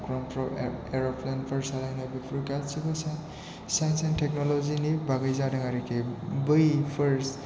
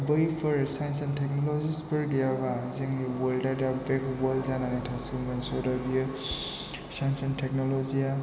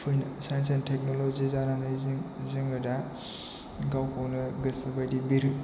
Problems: constant background noise